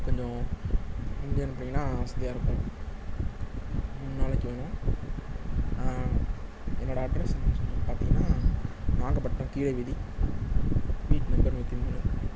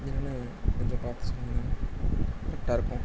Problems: constant background noise